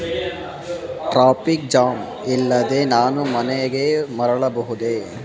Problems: constant background noise